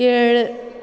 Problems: none marked